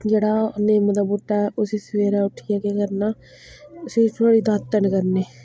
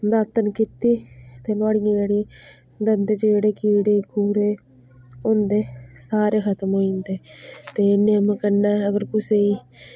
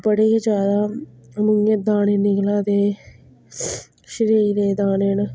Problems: none marked